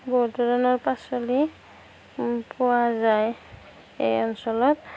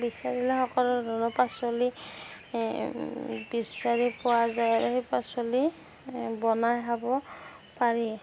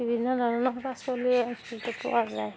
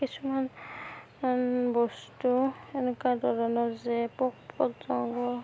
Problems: background sounds at intervals